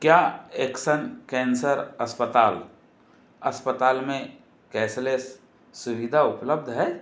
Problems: constant background noise